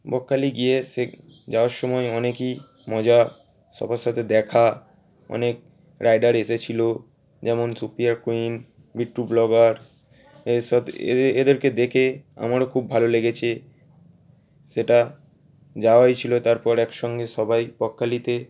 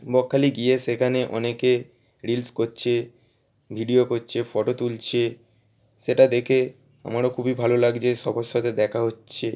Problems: none marked